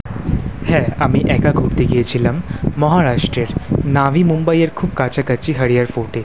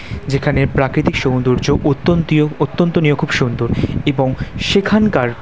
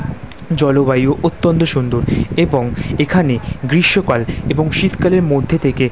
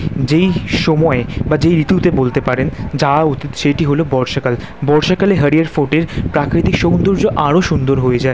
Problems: none marked